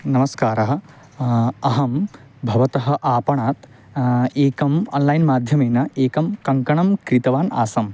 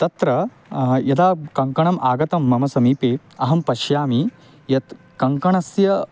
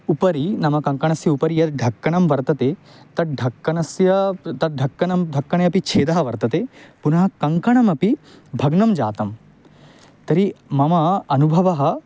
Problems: background sounds at intervals